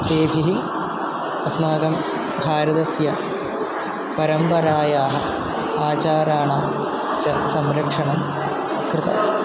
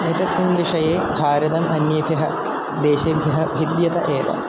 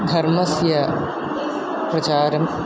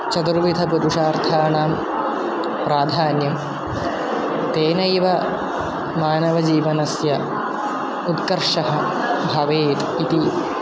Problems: constant background noise